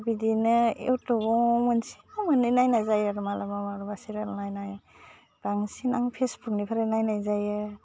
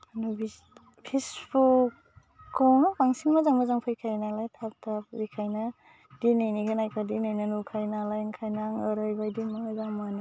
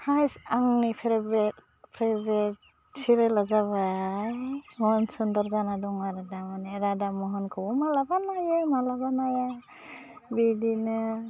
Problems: constant background noise